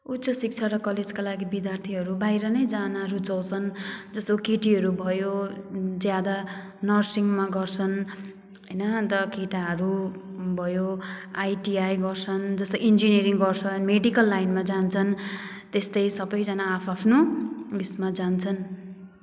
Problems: background sounds at intervals